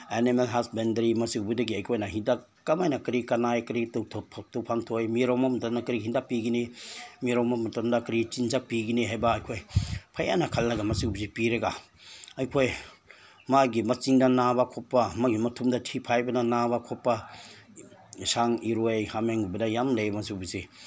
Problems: constant background noise